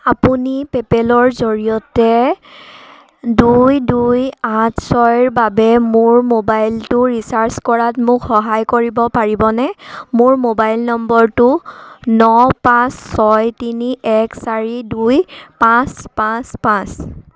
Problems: background sounds at intervals